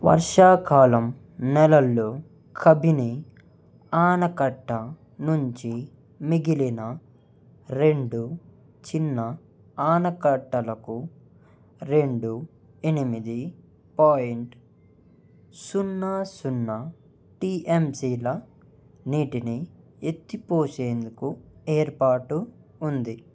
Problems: none marked